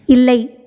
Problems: none marked